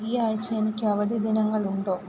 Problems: constant background noise